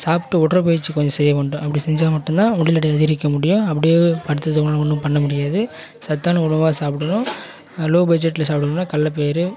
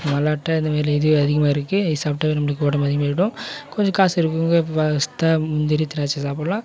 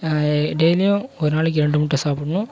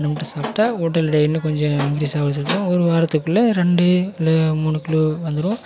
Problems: background conversations at intervals